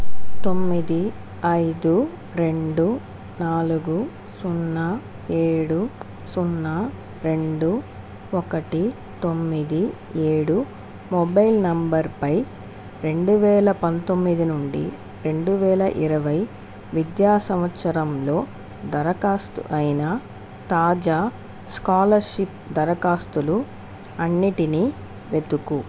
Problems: constant background noise